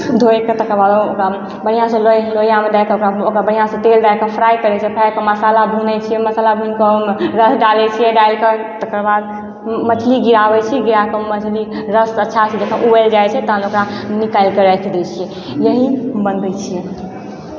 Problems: constant background noise, background conversations at intervals